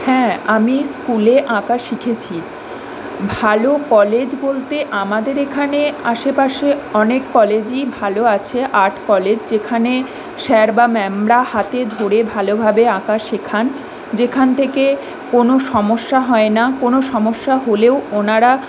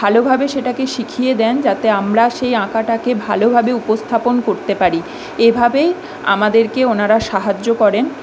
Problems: constant background noise